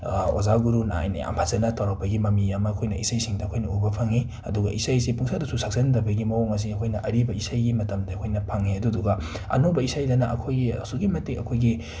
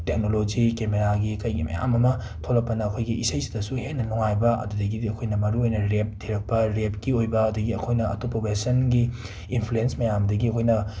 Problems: none marked